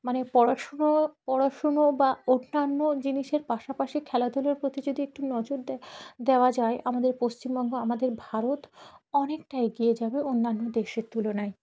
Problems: background sounds at intervals, background conversations at intervals